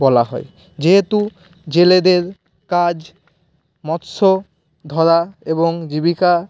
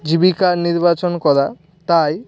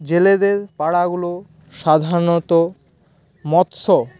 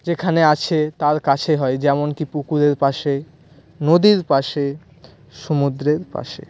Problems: none marked